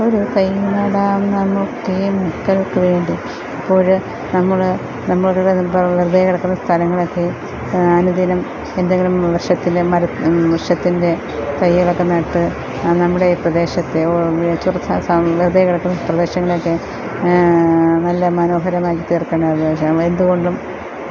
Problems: constant background noise, low volume